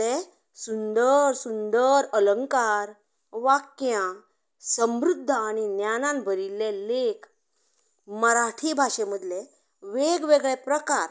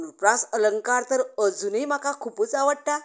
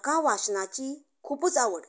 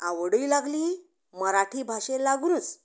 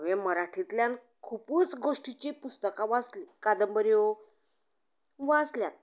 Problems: background conversations at intervals